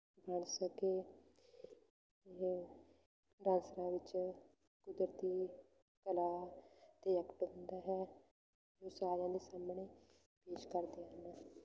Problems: constant background noise